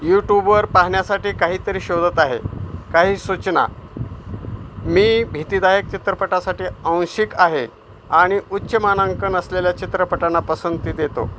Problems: constant background noise